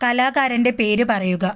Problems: none marked